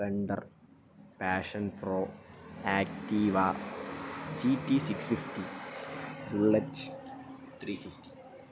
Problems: background sounds at intervals, low volume